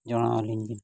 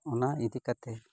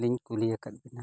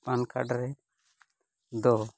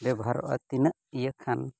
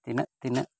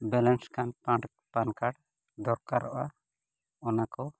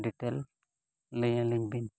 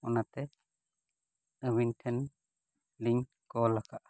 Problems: background sounds at intervals, low volume